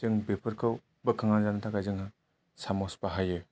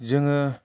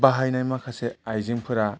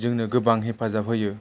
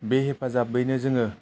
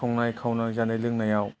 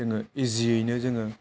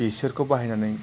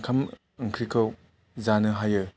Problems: low volume